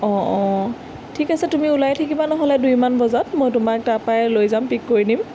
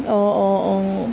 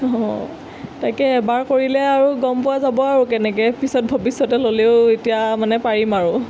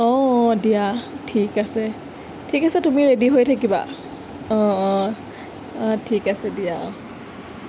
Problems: constant background noise